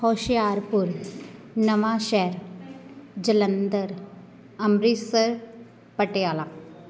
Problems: constant background noise, continuous background conversations